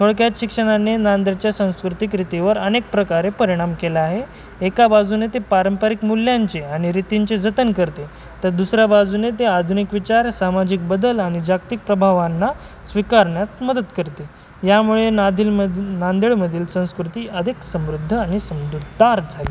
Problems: constant background noise